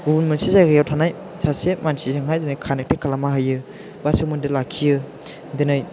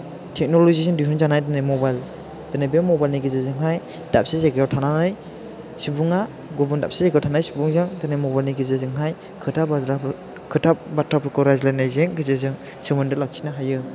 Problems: none marked